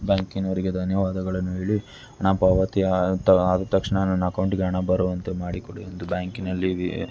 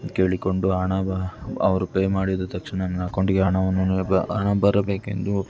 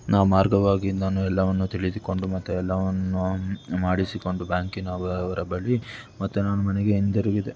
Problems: background sounds at intervals